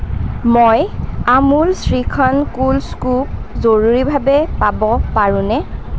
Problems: constant background noise